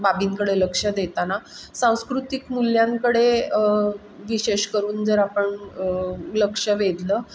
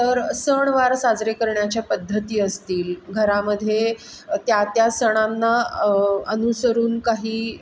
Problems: background sounds at intervals